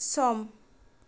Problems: low volume